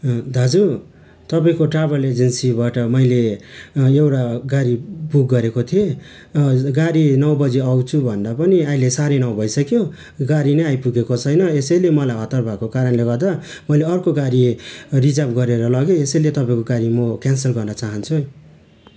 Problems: constant background noise